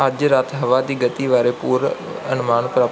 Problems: background sounds at intervals